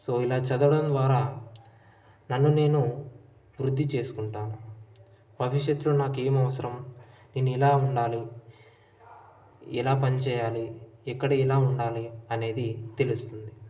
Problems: none marked